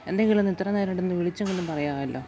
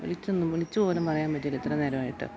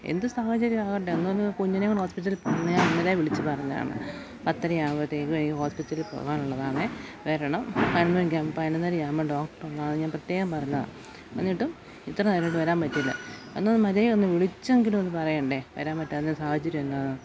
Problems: constant background noise